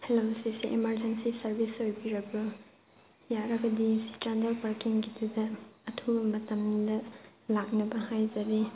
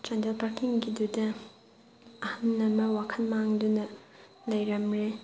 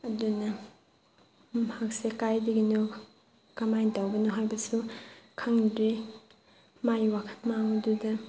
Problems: background conversations at intervals